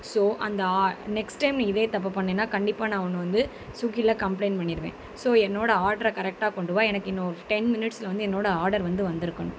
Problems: constant background noise